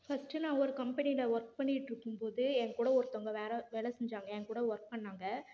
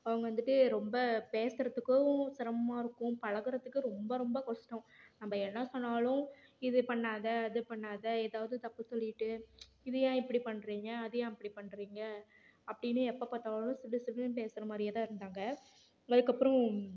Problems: none marked